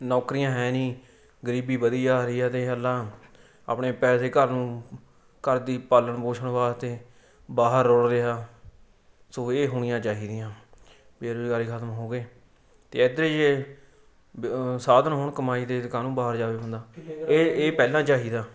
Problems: background sounds at intervals